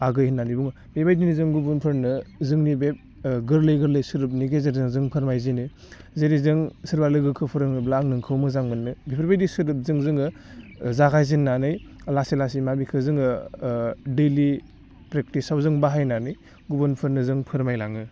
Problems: none marked